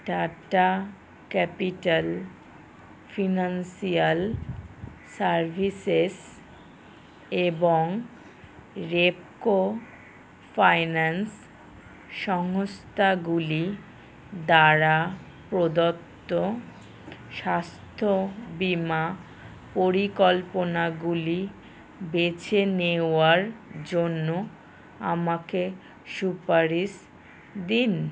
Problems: background sounds at intervals